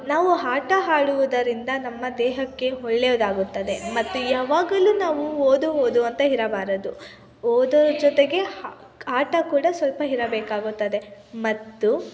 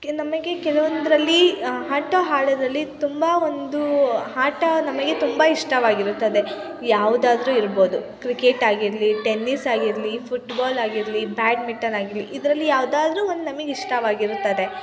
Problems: constant background noise, continuous background conversations